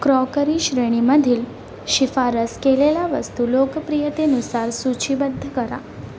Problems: constant background noise